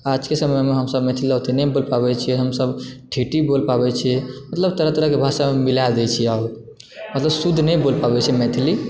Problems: background sounds at intervals